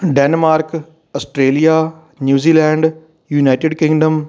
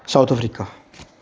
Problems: background conversations at intervals